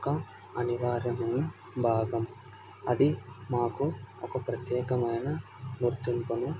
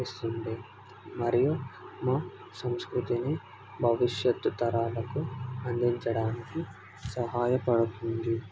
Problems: none marked